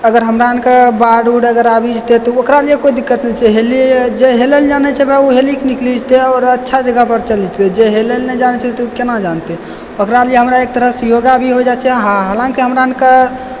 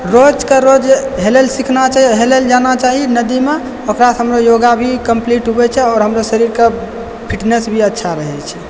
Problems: background sounds at intervals, echo